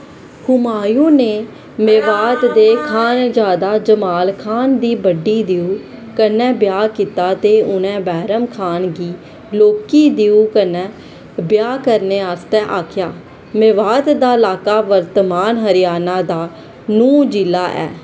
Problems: constant background noise